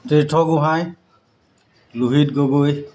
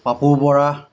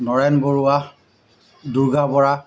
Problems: constant background noise